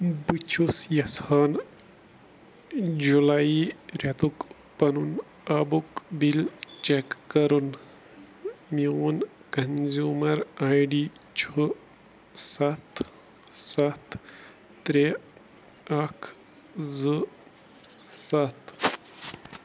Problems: none marked